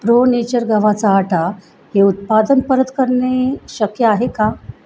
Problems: constant background noise